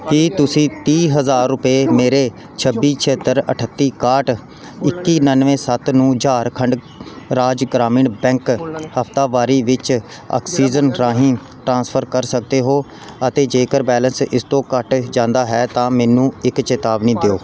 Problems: background sounds at intervals, background conversations at intervals